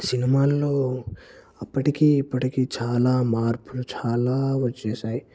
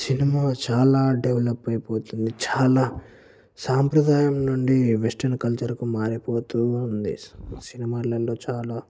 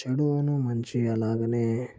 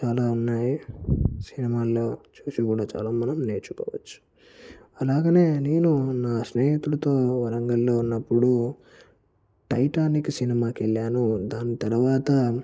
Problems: low volume